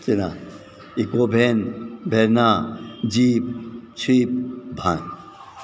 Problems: none marked